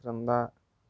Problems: low volume